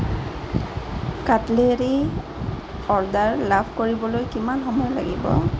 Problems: constant background noise